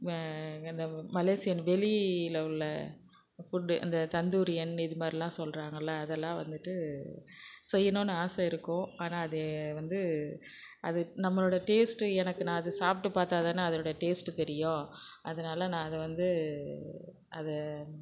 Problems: background sounds at intervals